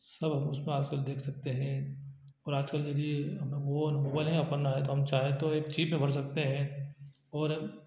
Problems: low volume